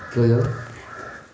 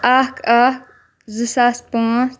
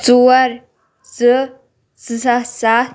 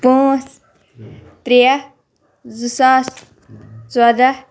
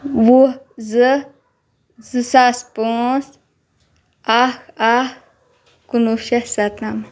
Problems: none marked